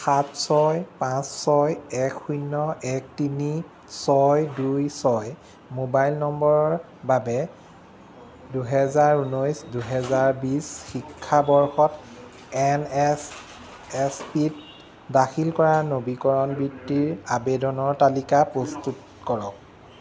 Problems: constant background noise